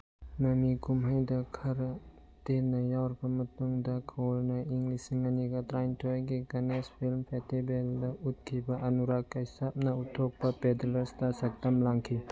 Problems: background sounds at intervals